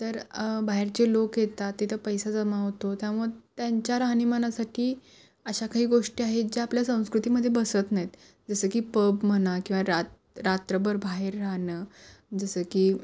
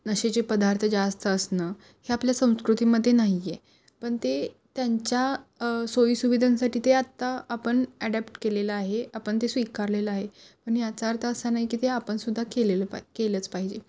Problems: none marked